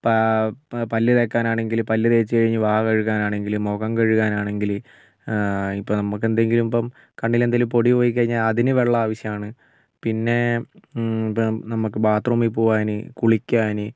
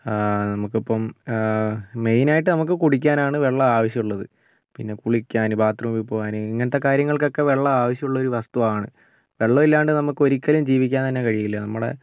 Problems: none marked